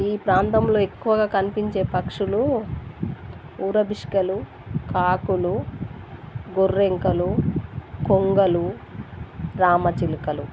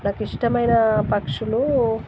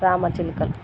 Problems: constant background noise